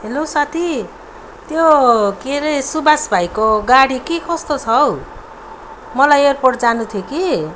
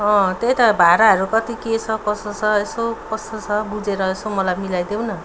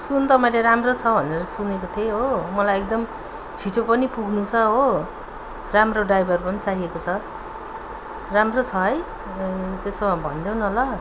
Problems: none marked